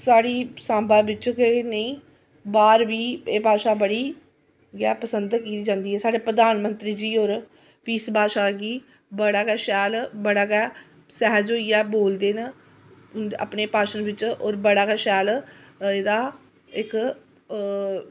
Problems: constant background noise